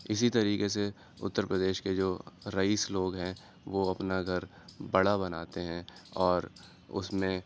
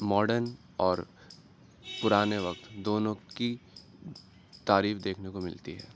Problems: background sounds at intervals